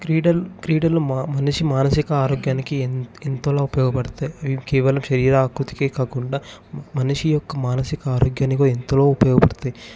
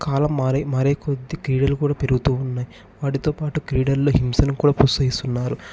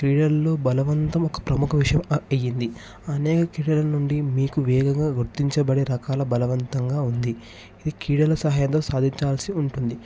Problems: background sounds at intervals